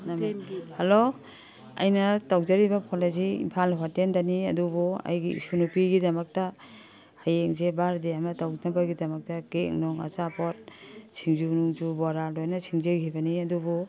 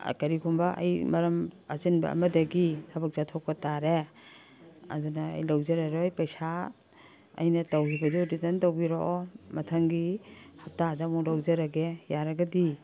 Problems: background sounds at intervals